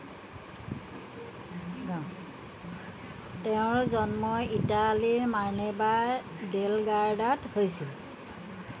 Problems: none marked